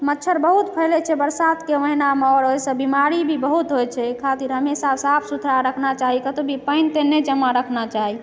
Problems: background sounds at intervals